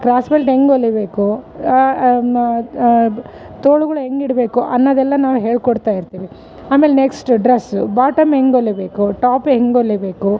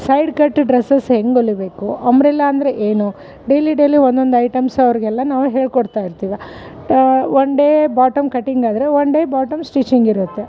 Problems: none marked